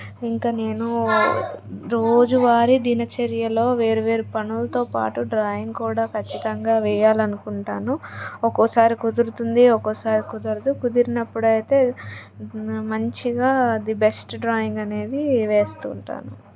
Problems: background conversations at intervals